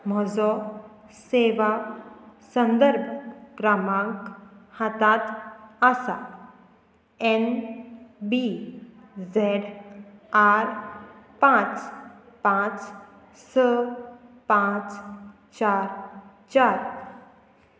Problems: none marked